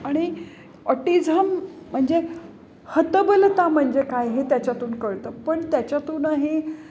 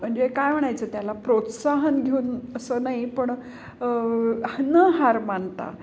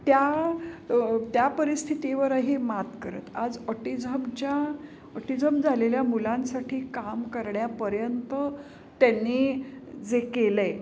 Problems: constant background noise, background conversations at intervals